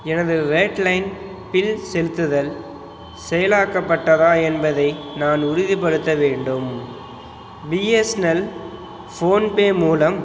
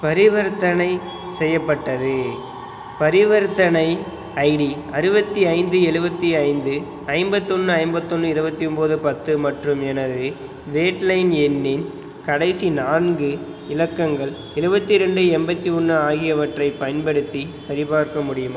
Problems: background sounds at intervals